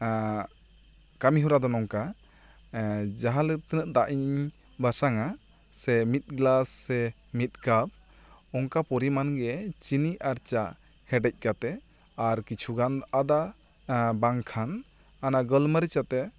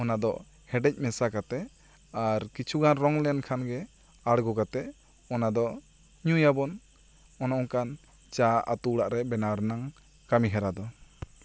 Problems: constant background noise